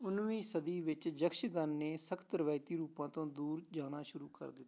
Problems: background sounds at intervals